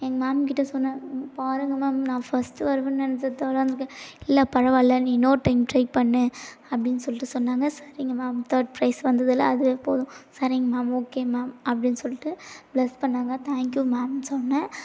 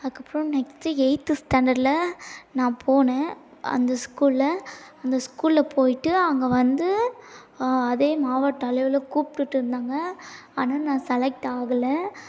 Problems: none marked